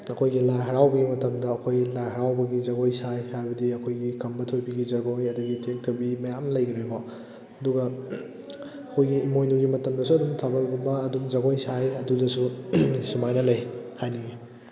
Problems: background conversations at intervals